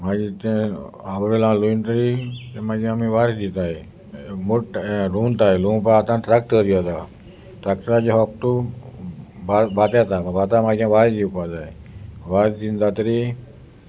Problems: constant background noise